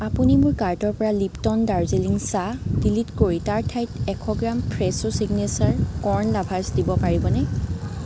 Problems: constant background noise, background conversations at intervals